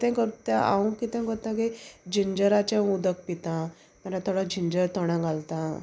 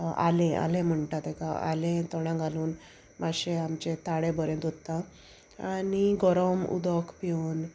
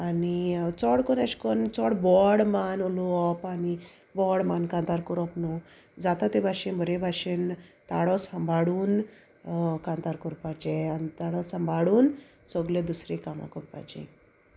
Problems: none marked